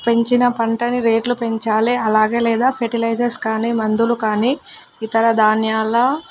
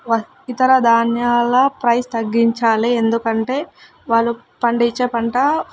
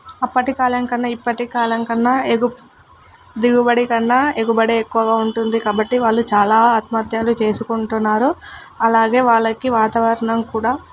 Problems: none marked